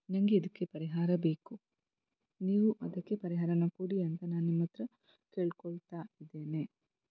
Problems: low volume